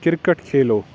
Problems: constant background noise